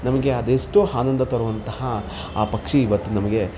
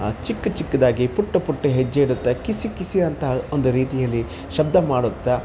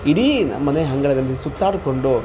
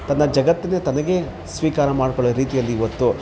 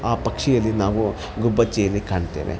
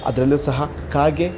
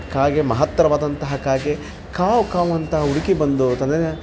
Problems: constant background noise